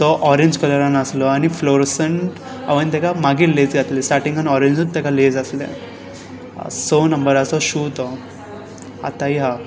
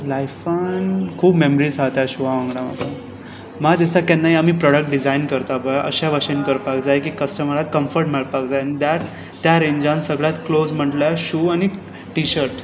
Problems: constant background noise